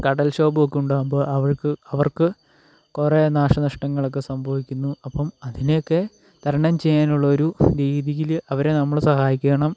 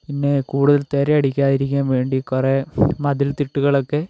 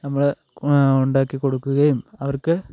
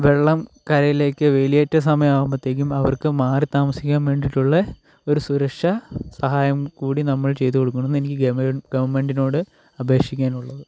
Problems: none marked